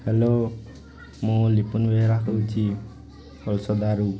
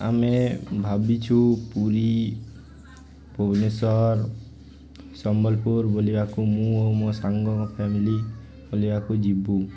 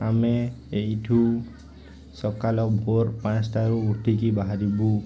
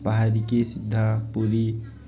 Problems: constant background noise